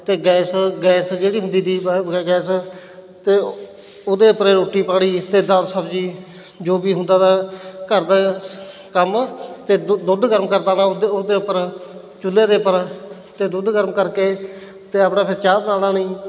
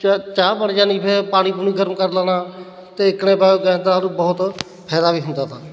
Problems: none marked